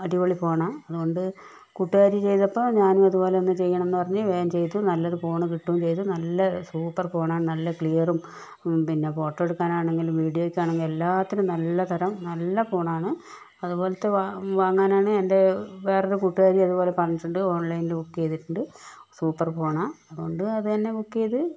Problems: none marked